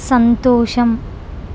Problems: constant background noise